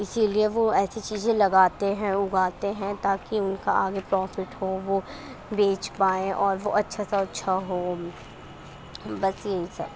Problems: constant background noise